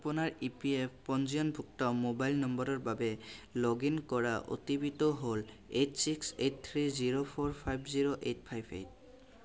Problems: none marked